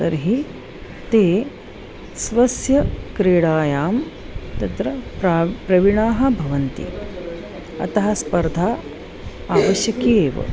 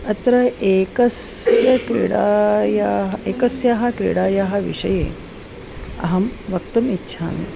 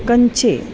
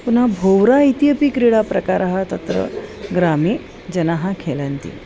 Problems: none marked